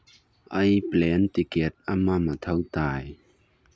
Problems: low volume